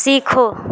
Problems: constant background noise